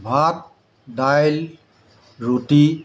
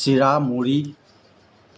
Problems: constant background noise